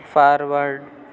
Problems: none marked